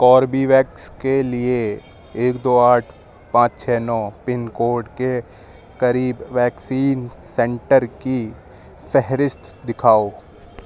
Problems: background sounds at intervals